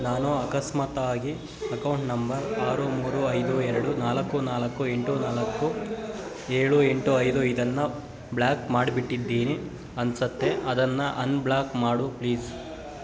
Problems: constant background noise